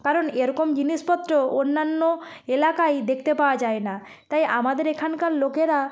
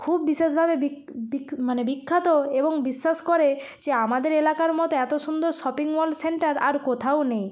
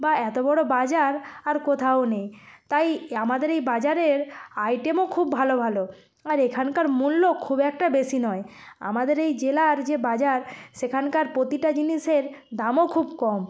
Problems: background sounds at intervals